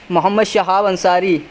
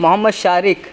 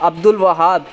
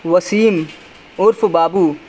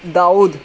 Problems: constant background noise